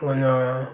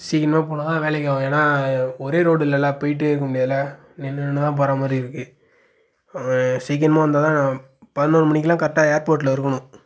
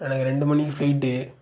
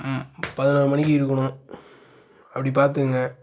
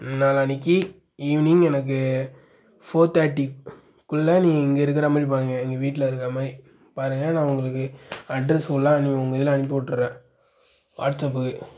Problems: none marked